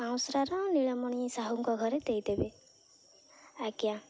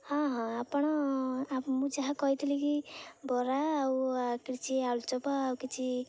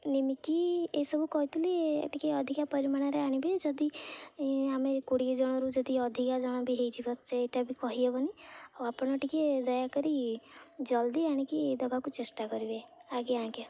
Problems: low volume